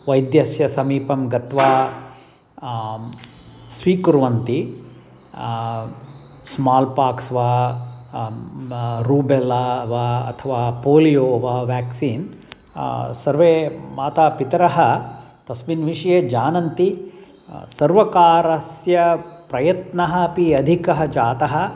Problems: constant background noise, background conversations at intervals